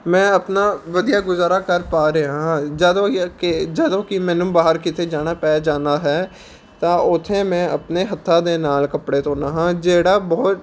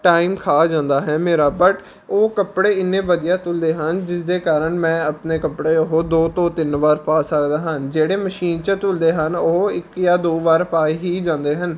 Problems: constant background noise